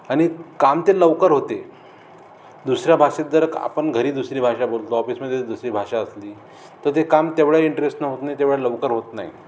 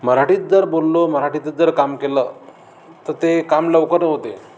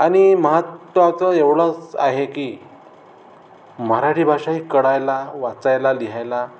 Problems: none marked